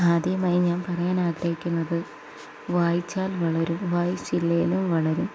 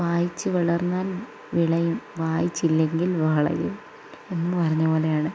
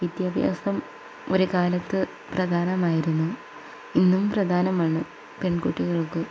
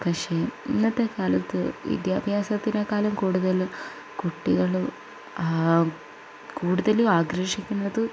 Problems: low volume